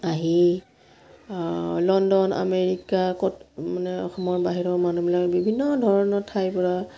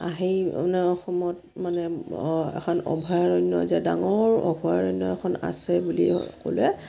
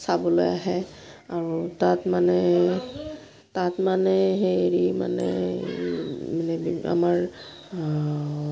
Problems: background sounds at intervals